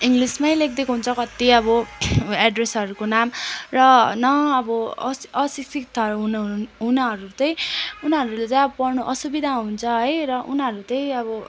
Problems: none marked